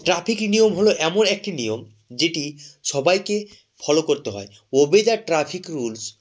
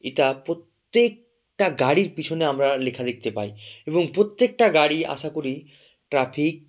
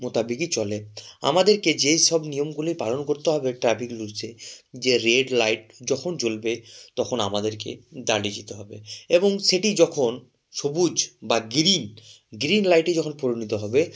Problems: background sounds at intervals